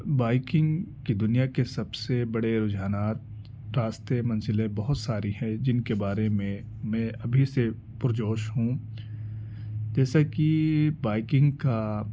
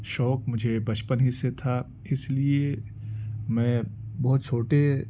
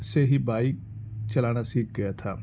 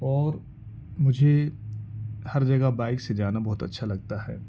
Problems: background sounds at intervals